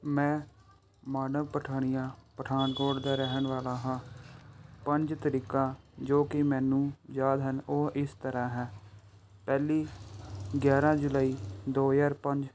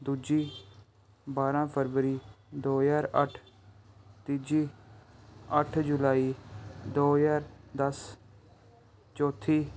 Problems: background sounds at intervals